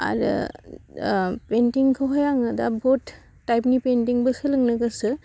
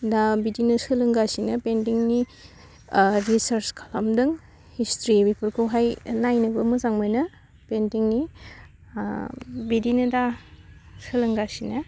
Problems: none marked